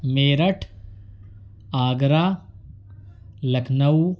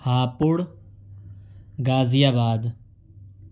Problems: none marked